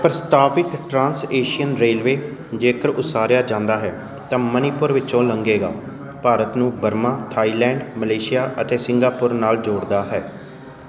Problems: constant background noise